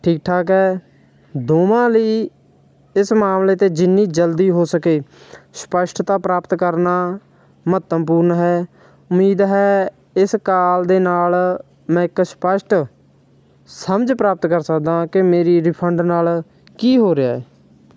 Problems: none marked